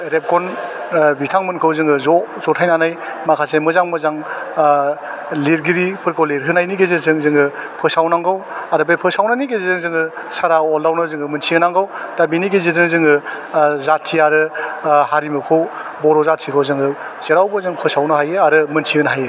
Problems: none marked